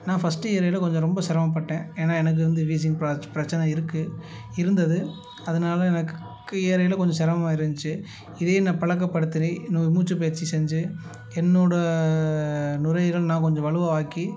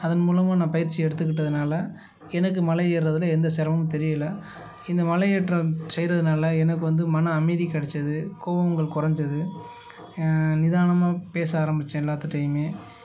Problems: background sounds at intervals